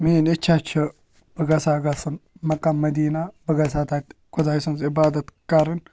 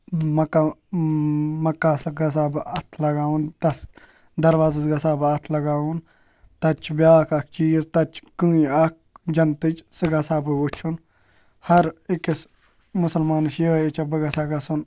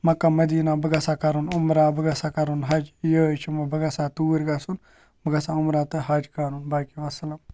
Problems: background sounds at intervals